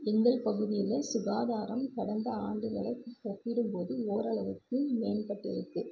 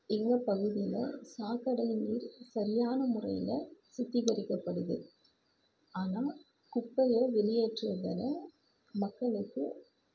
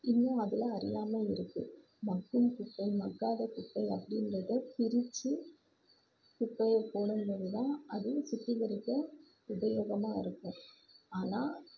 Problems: constant background noise, low volume